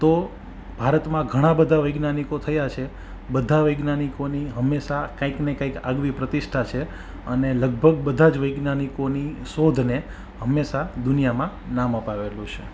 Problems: background sounds at intervals